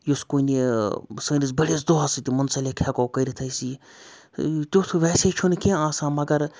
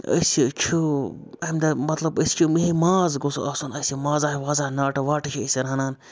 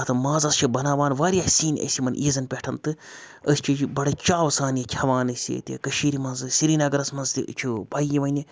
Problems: none marked